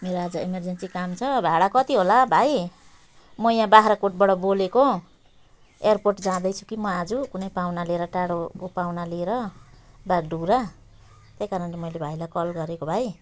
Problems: none marked